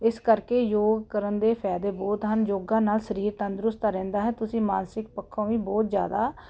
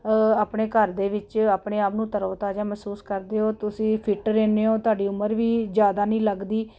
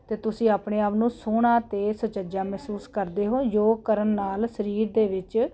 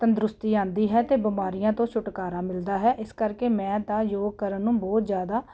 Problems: none marked